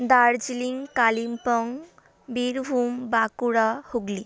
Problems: continuous background conversations